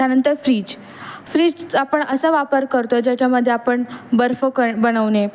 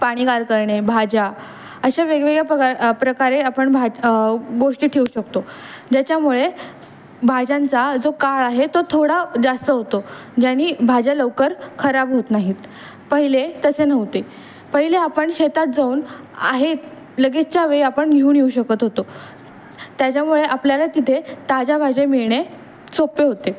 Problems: constant background noise, background conversations at intervals